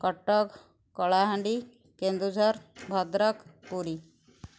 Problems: background sounds at intervals